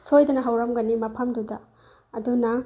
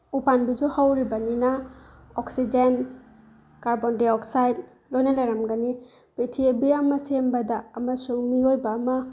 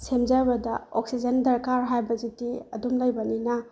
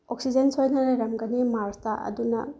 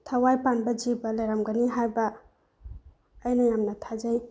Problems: none marked